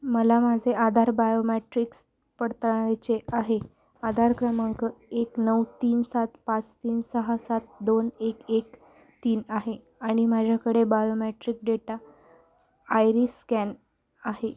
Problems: none marked